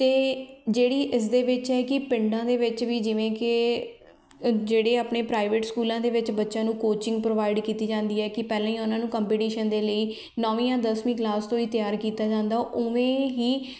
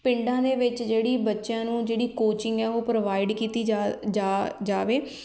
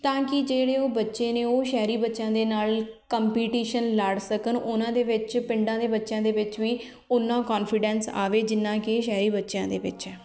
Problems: background conversations at intervals